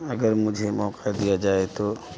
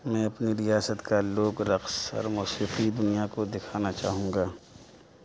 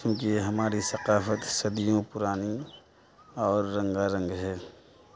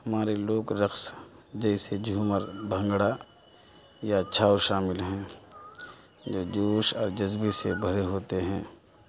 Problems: constant background noise, continuous background conversations, low volume